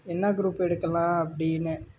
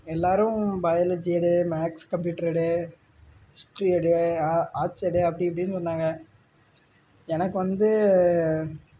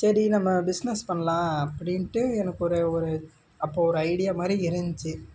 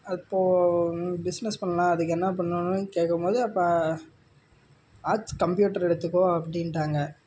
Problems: low volume